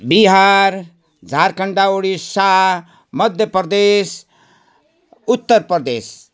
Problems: background sounds at intervals